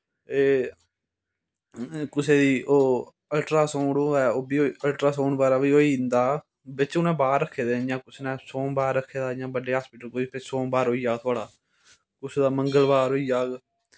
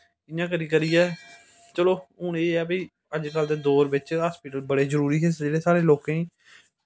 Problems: background sounds at intervals